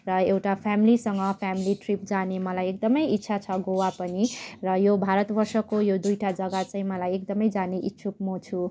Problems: none marked